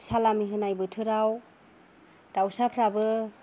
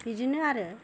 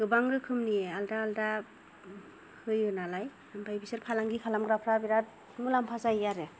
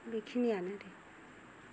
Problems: low volume